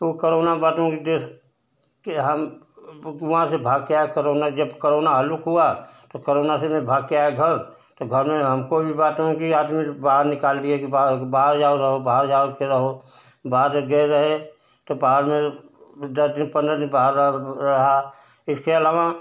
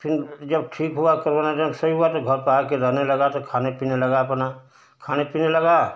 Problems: constant background noise